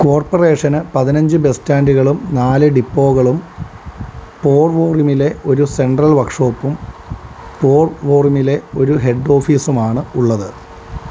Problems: constant background noise